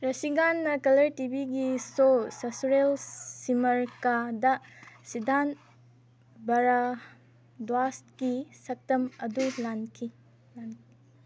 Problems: none marked